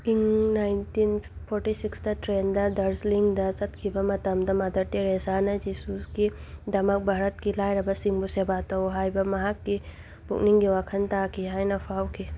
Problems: background sounds at intervals